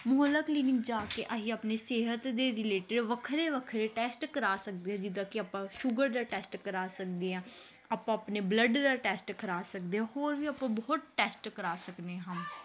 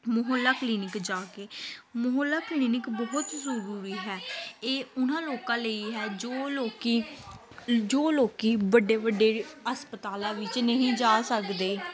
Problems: background sounds at intervals, continuous background conversations